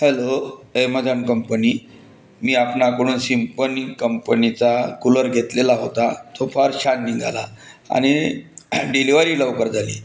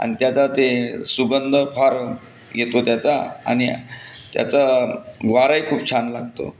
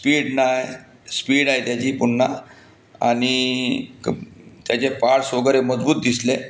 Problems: constant background noise